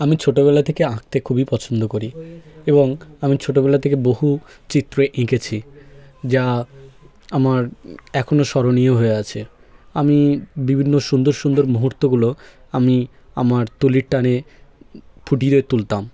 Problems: background sounds at intervals